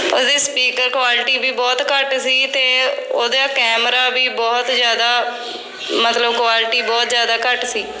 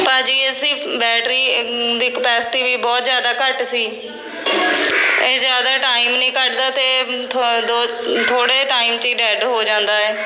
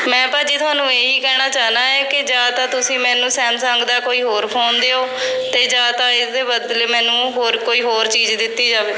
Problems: constant background noise, background conversations at intervals